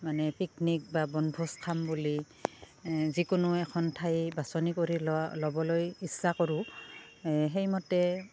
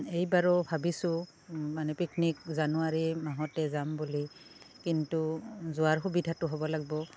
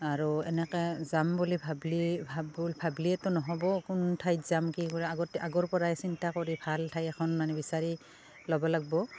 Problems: constant background noise, background conversations at intervals